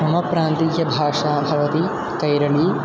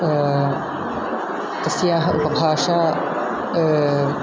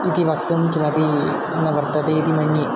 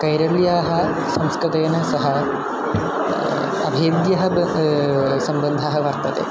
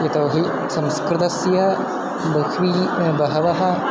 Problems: constant background noise